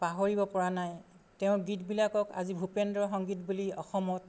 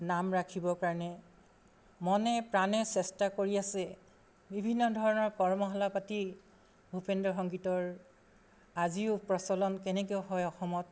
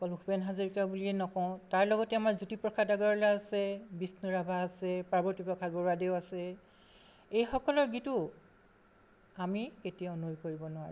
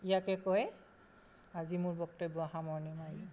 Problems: constant background noise